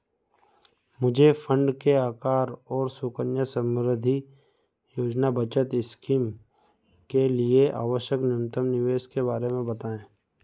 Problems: background sounds at intervals